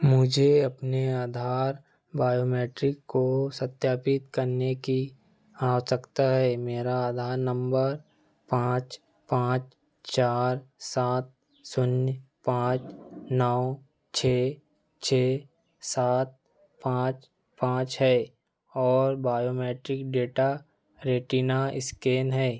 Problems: background sounds at intervals